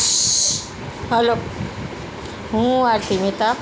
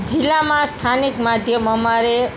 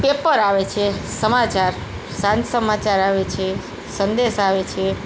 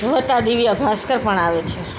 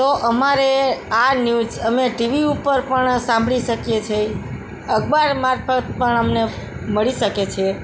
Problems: background sounds at intervals